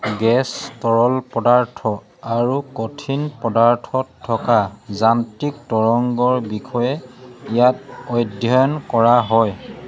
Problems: none marked